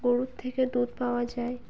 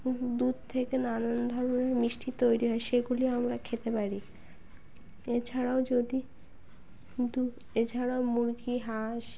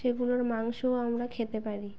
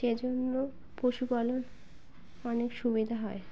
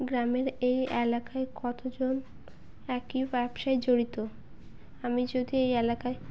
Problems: none marked